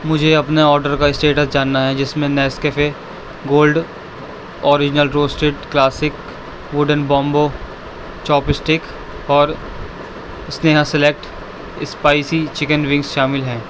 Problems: constant background noise